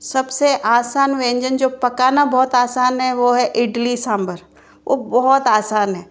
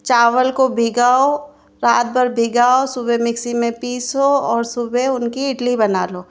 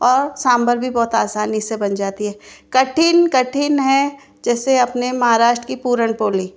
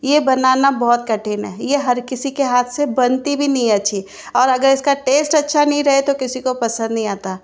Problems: constant background noise